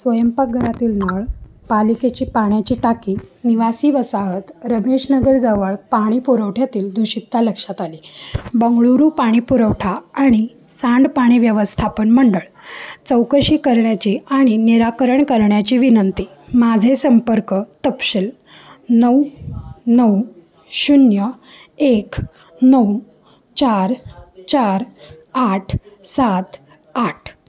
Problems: none marked